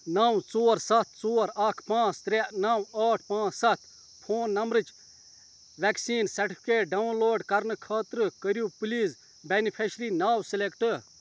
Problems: constant background noise